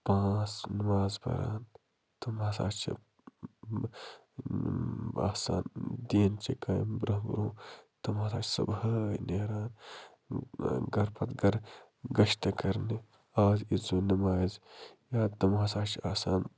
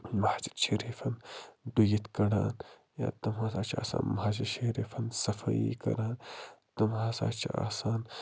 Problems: low volume